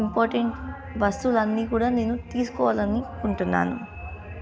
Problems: continuous background conversations